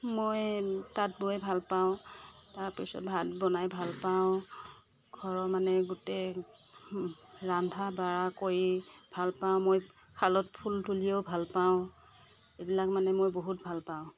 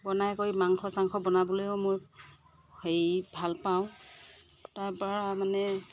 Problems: none marked